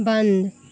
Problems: none marked